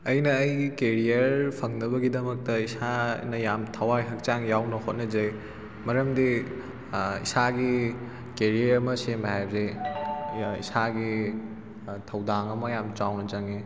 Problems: constant background noise